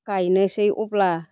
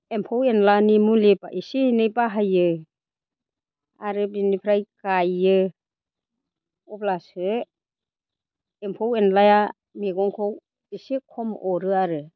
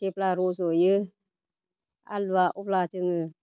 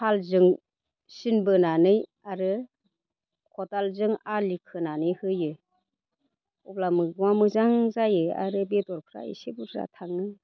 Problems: constant background noise